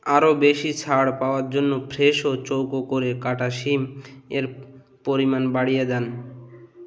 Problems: none marked